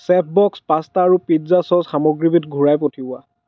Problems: none marked